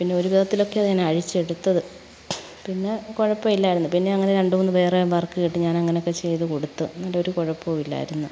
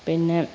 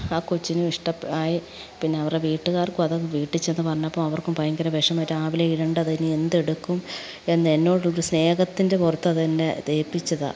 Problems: none marked